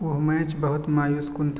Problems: constant background noise